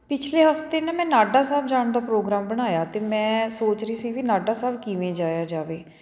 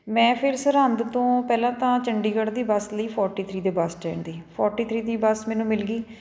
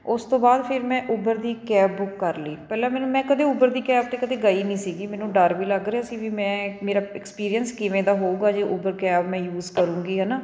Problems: background sounds at intervals